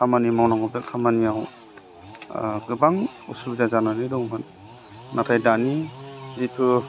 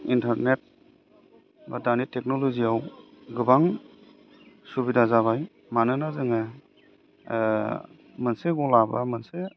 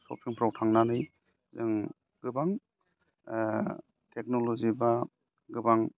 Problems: low volume